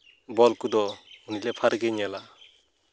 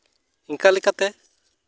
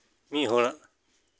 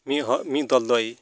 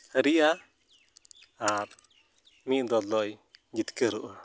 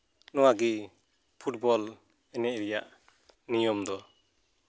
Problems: background sounds at intervals